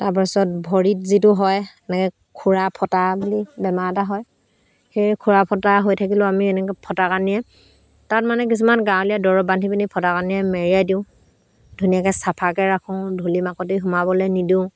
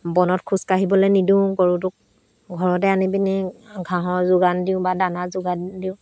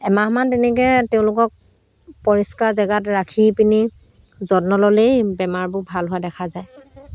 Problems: constant background noise